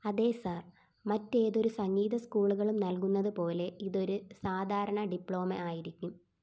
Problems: background sounds at intervals